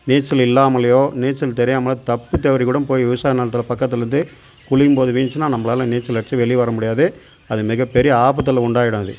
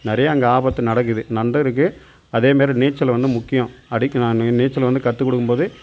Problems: constant background noise